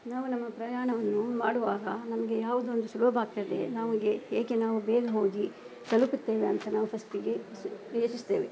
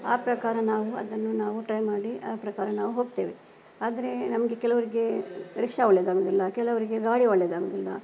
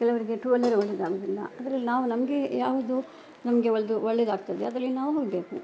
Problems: background sounds at intervals